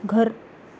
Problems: constant background noise